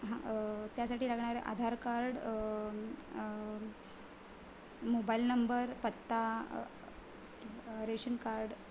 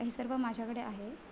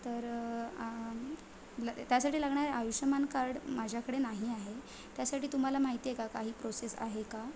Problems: constant background noise